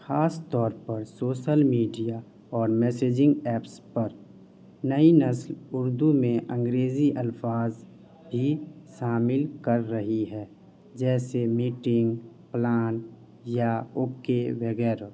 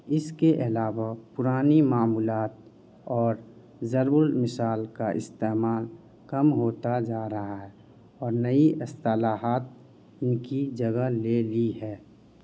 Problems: constant background noise